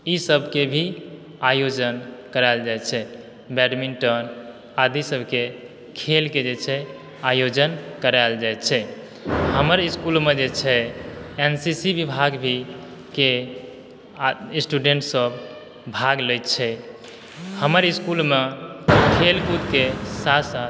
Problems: background sounds at intervals